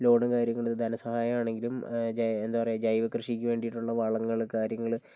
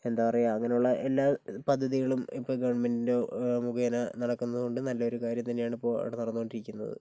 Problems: none marked